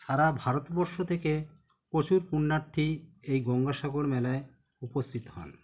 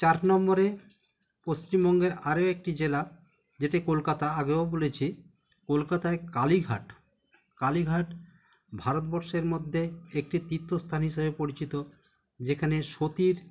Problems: constant background noise